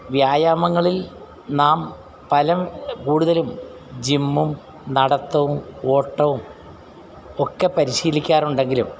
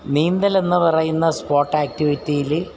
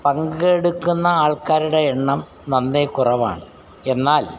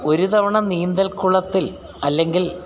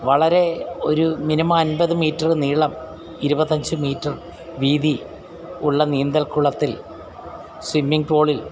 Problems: none marked